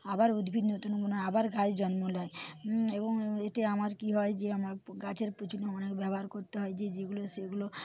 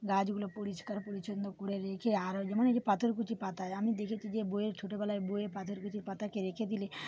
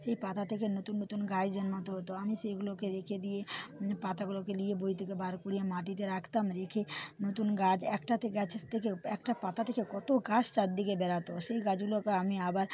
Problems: none marked